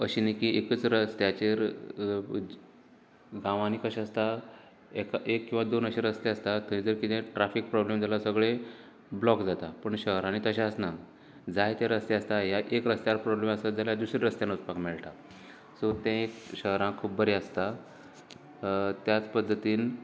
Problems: constant background noise